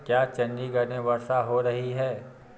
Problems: low volume